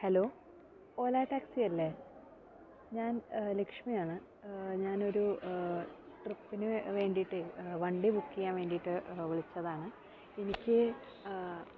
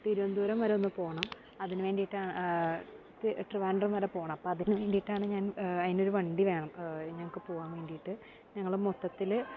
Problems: background sounds at intervals